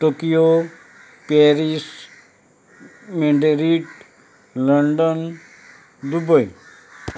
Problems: constant background noise